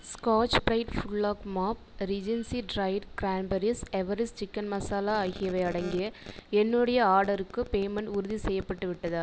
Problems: echo